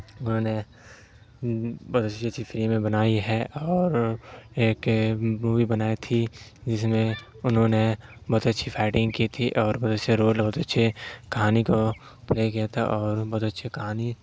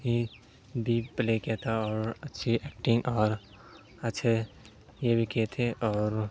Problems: constant background noise